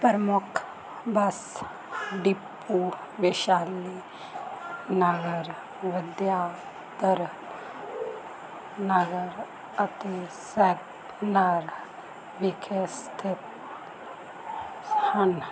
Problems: constant background noise, background conversations at intervals